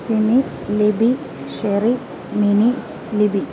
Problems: constant background noise